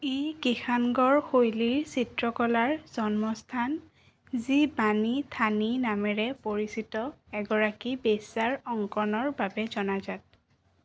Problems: none marked